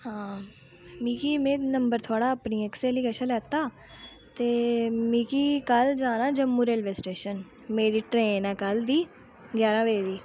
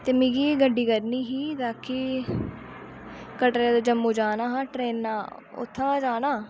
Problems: low volume